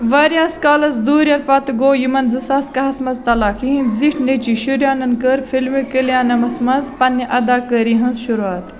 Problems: constant background noise, continuous background conversations